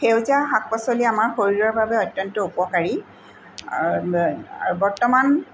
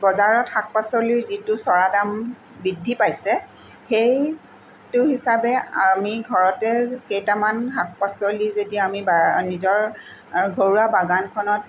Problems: none marked